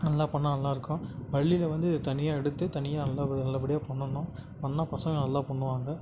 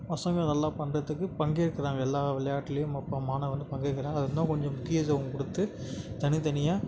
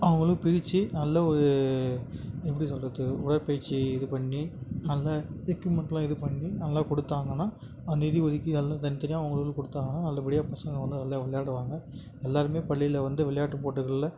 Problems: constant background noise